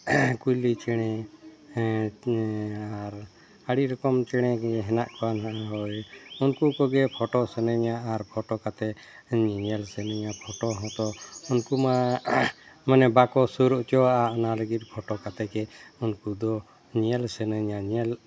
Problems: background sounds at intervals